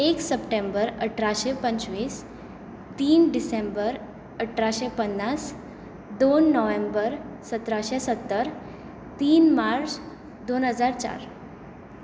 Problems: constant background noise